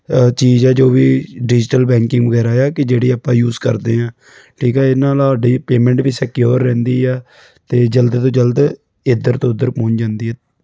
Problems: background sounds at intervals